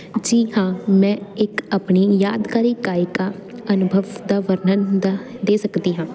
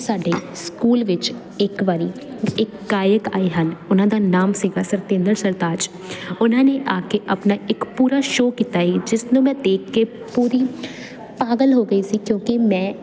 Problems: constant background noise